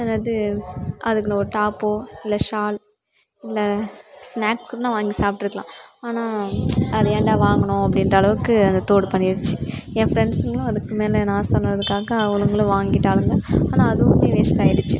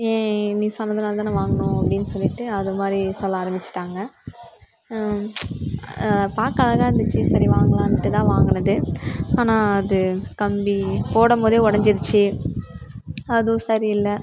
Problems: background sounds at intervals